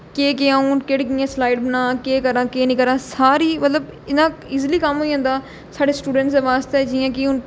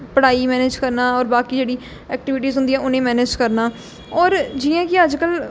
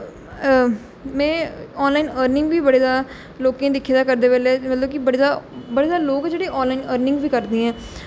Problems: none marked